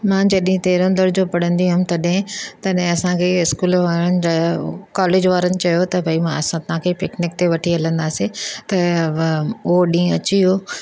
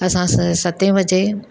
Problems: none marked